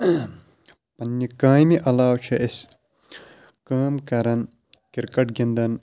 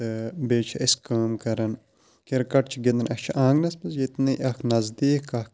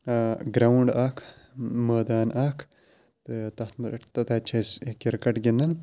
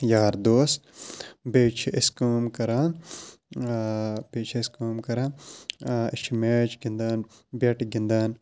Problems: background sounds at intervals